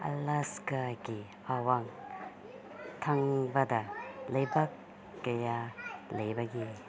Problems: constant background noise, low volume